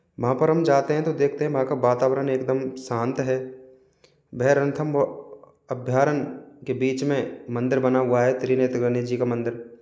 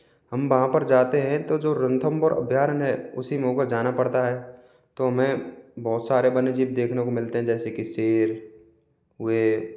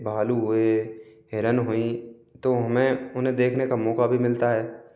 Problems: background sounds at intervals